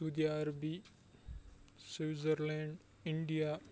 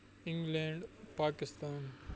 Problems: background sounds at intervals, low volume